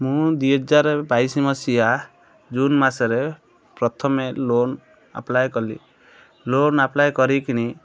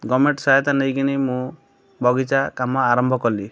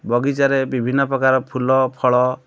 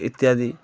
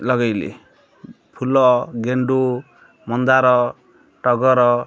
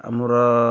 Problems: none marked